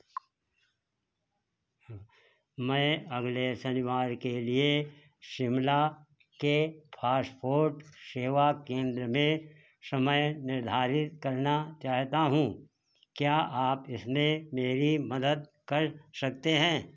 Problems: none marked